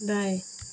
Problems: none marked